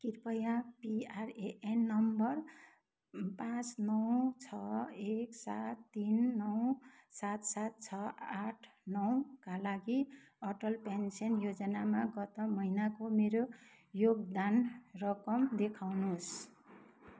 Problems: none marked